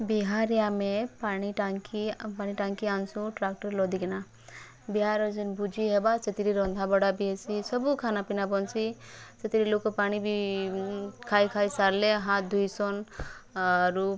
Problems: background conversations at intervals